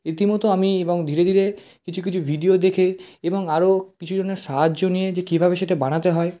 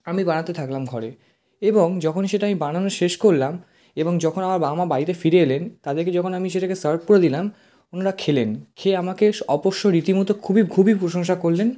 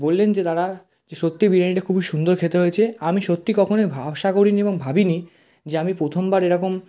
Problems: constant background noise